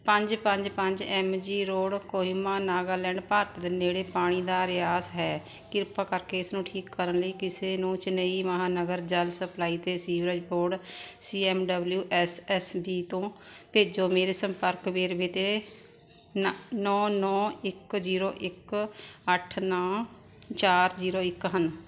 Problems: constant background noise